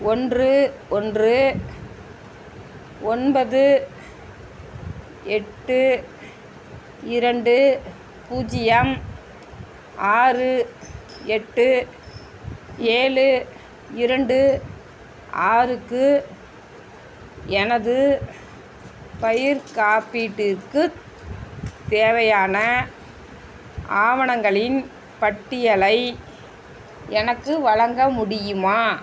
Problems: constant background noise, background conversations at intervals